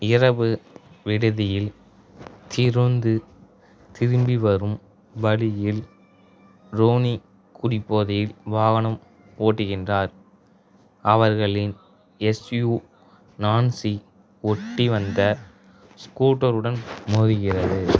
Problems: background sounds at intervals